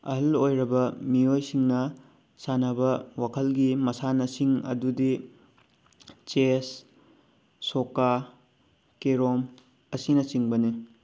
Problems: none marked